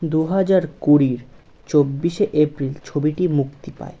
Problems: none marked